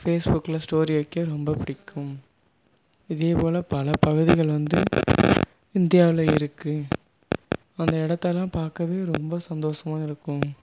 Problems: background sounds at intervals